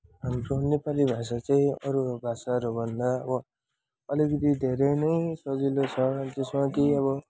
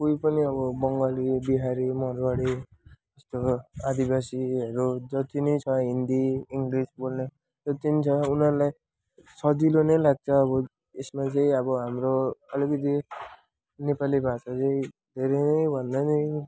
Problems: background sounds at intervals, background conversations at intervals